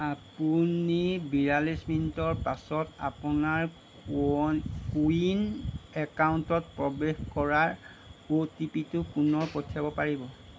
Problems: none marked